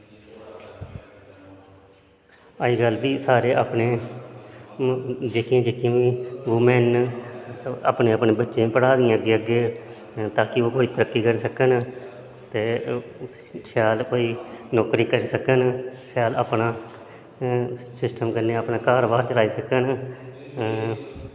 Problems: constant background noise, echo